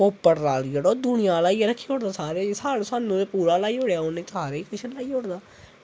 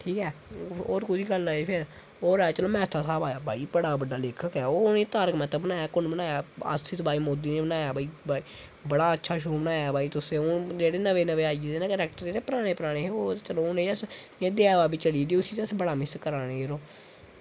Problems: constant background noise